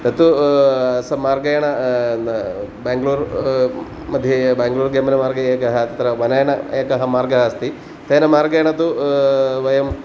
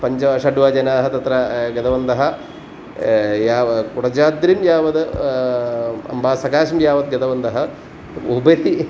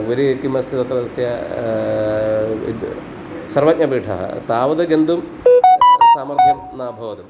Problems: constant background noise